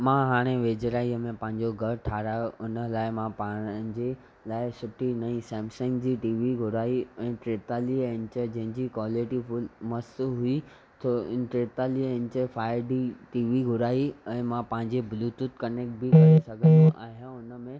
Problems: background sounds at intervals